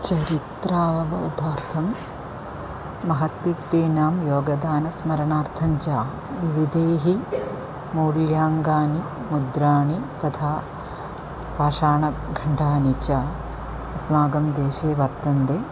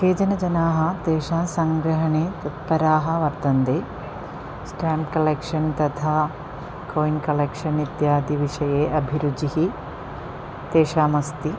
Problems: constant background noise